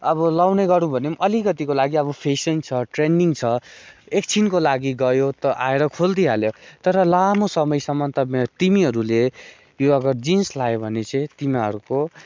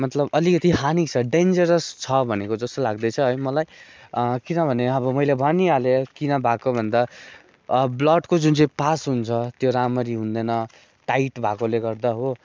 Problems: none marked